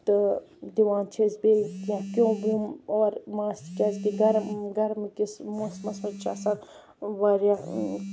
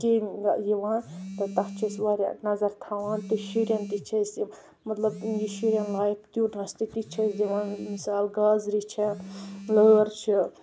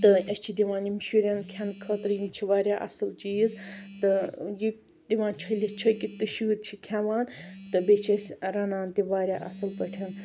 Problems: none marked